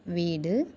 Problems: none marked